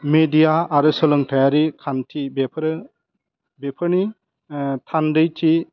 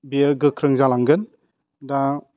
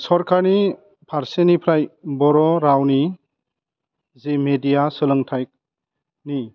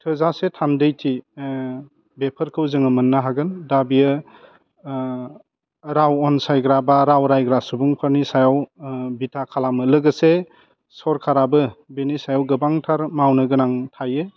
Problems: low volume